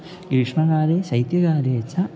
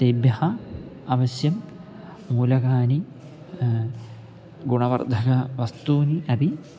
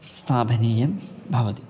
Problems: constant background noise